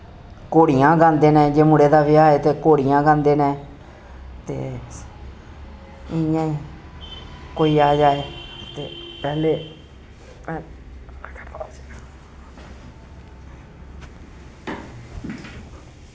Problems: constant background noise